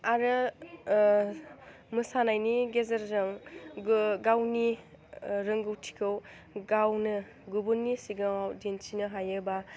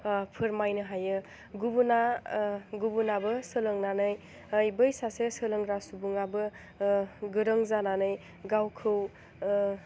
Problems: low volume